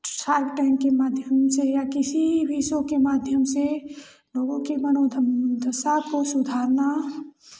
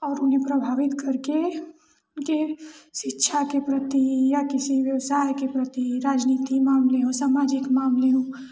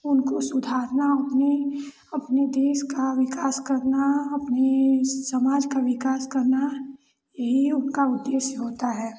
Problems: none marked